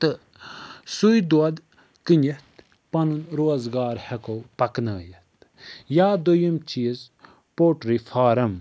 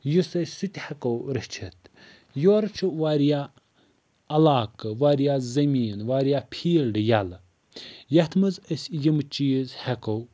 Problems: none marked